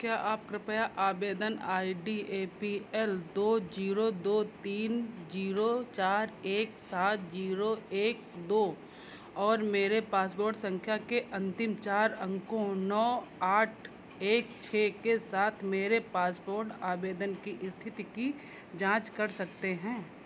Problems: constant background noise